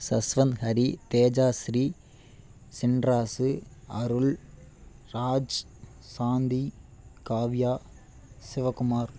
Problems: none marked